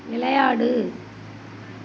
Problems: constant background noise